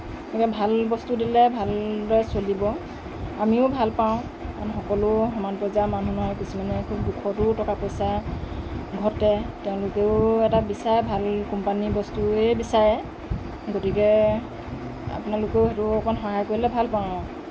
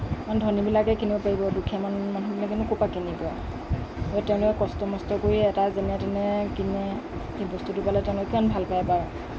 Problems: constant background noise, low volume